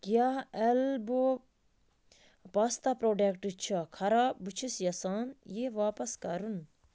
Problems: none marked